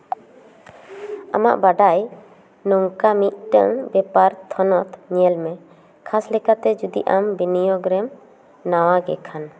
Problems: none marked